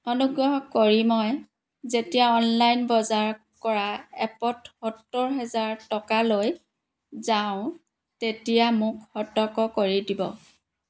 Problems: background sounds at intervals